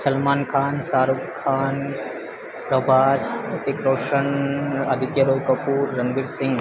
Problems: constant background noise